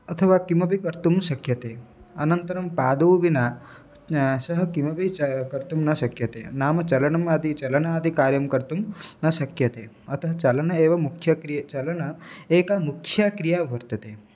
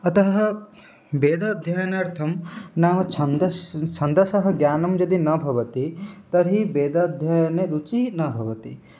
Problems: none marked